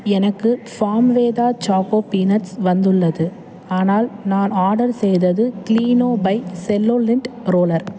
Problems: constant background noise, background conversations at intervals